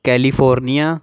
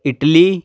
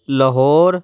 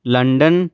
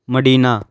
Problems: background sounds at intervals